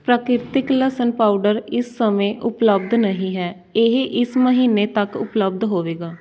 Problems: background sounds at intervals